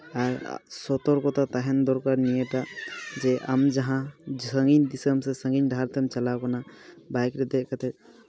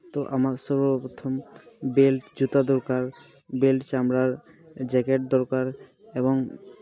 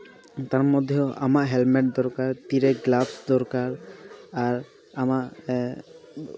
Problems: background sounds at intervals, continuous background conversations